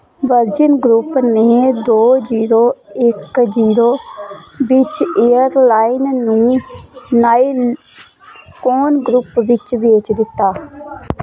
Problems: none marked